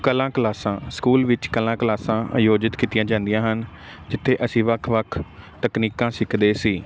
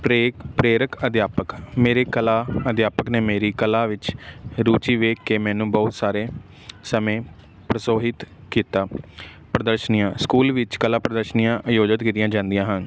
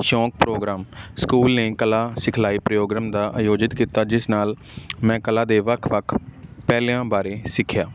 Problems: none marked